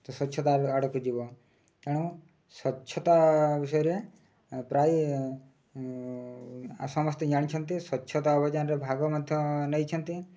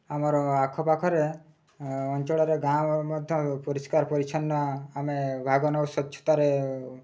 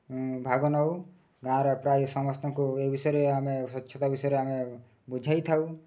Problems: low volume